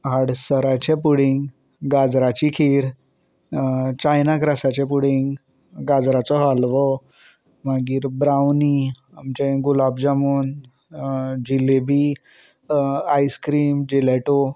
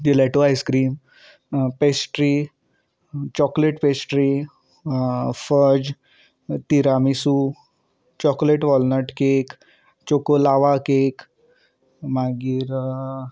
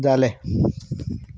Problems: none marked